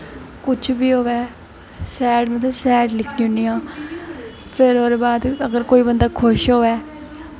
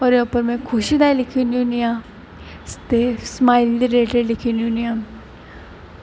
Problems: constant background noise